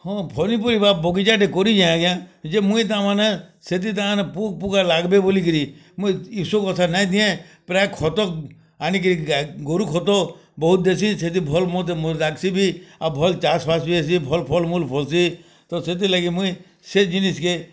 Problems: none marked